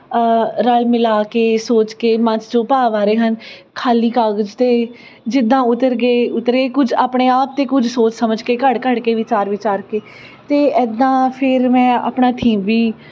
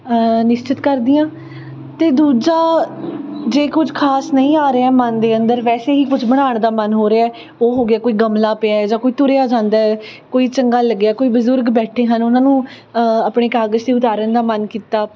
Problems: constant background noise, background conversations at intervals